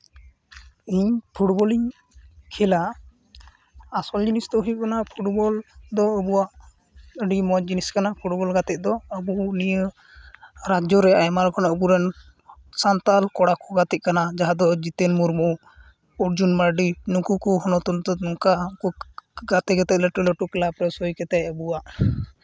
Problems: none marked